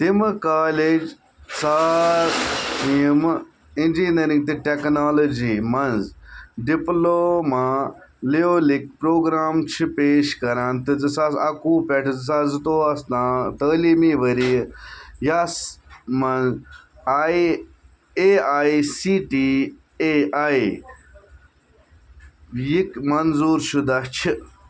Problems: background sounds at intervals